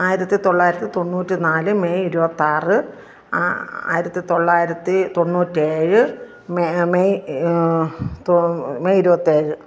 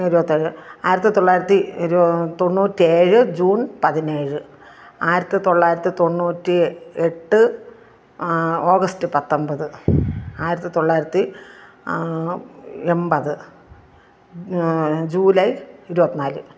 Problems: none marked